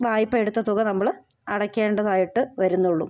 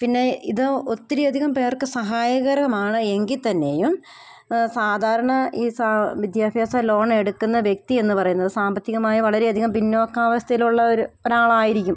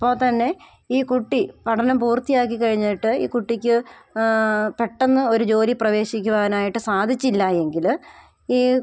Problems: none marked